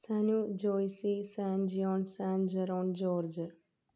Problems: none marked